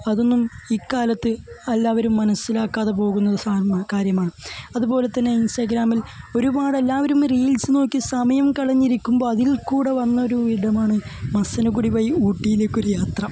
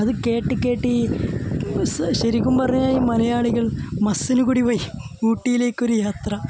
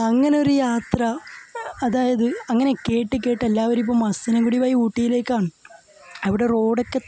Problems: none marked